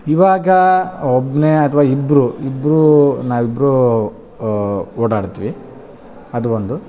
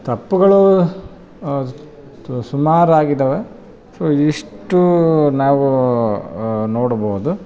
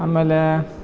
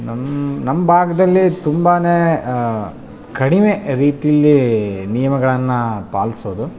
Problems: background conversations at intervals